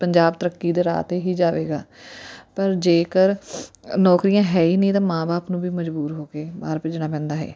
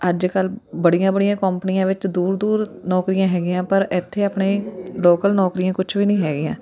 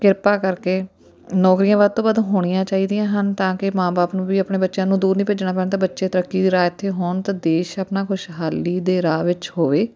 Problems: continuous background conversations